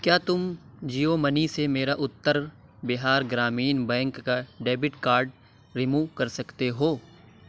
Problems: none marked